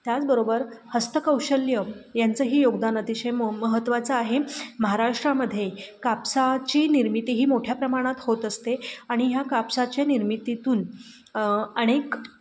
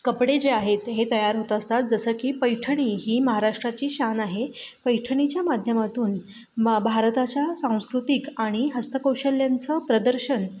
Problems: constant background noise, background conversations at intervals